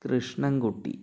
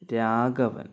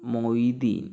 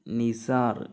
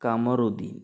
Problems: none marked